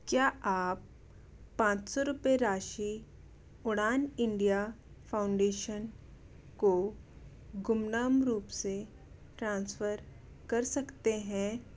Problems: none marked